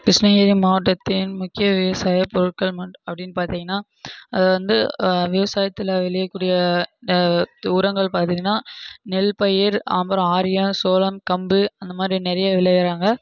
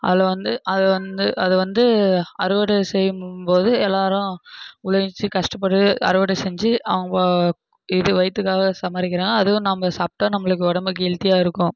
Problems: none marked